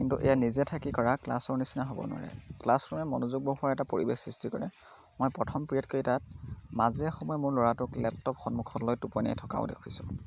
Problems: background sounds at intervals